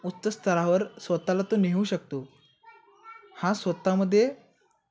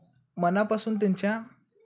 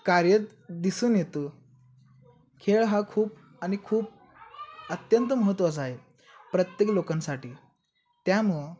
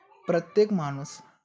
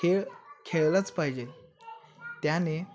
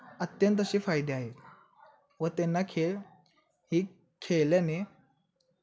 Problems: constant background noise, continuous background conversations